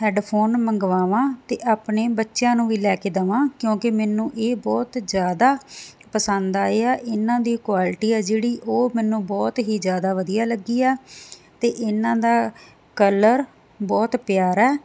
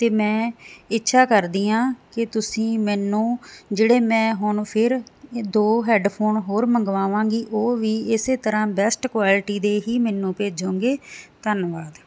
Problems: constant background noise